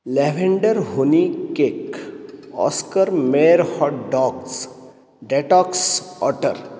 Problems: none marked